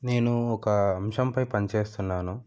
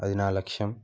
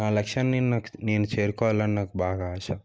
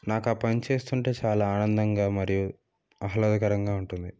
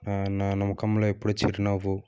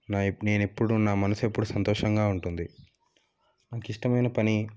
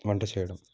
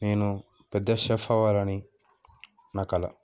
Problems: none marked